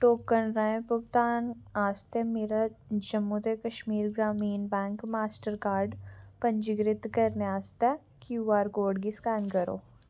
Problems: background sounds at intervals